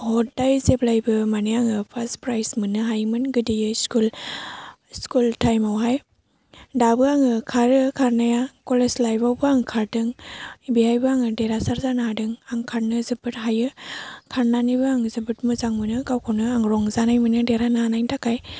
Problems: none marked